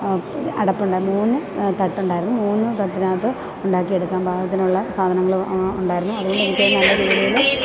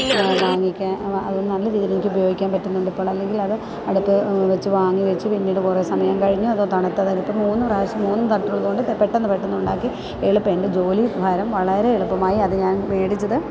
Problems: background sounds at intervals